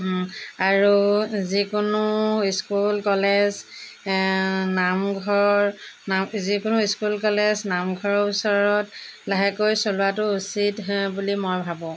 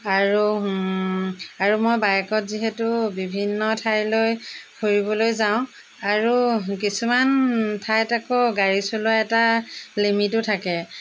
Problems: none marked